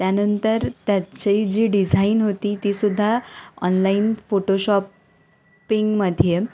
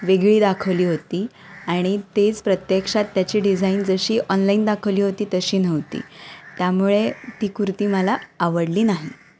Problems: none marked